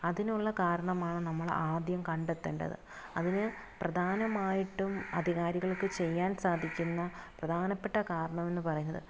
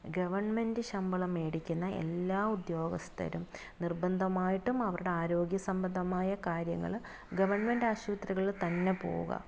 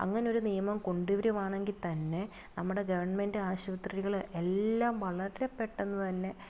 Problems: background sounds at intervals, low volume